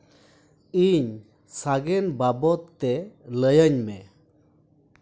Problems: background sounds at intervals